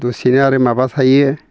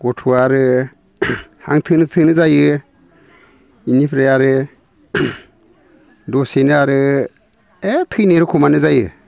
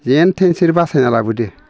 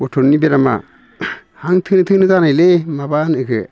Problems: constant background noise